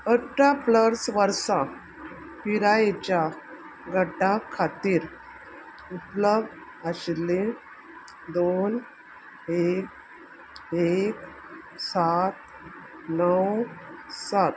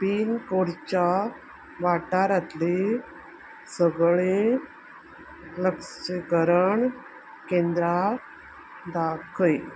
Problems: constant background noise